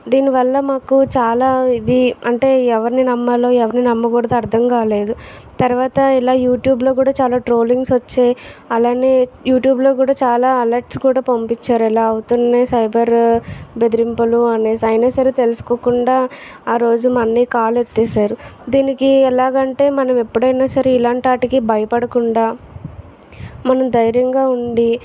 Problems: background sounds at intervals, background conversations at intervals